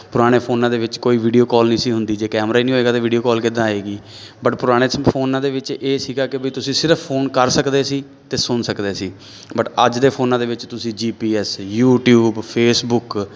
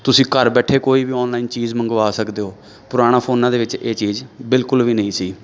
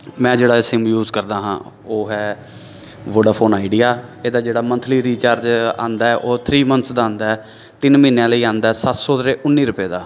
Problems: none marked